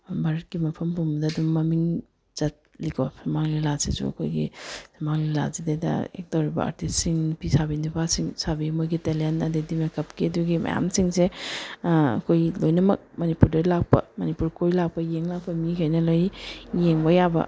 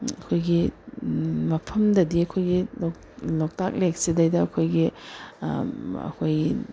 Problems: none marked